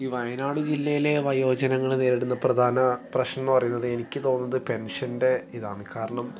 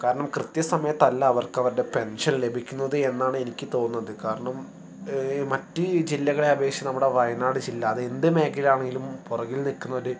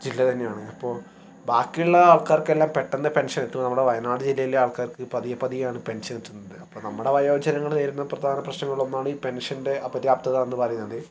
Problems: background sounds at intervals